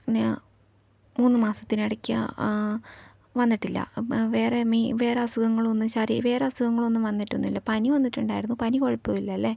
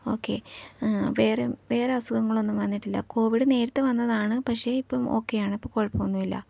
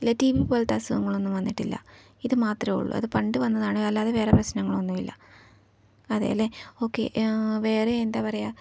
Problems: low volume